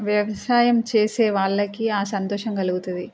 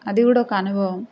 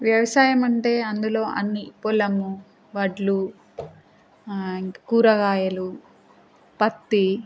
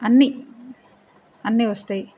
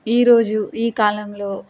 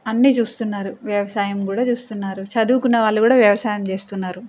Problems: constant background noise